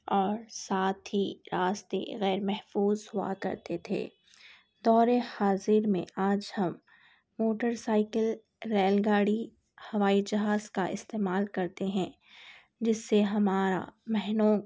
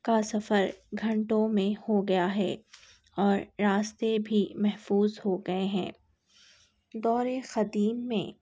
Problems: none marked